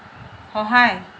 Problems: constant background noise